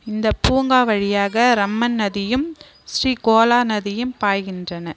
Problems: constant background noise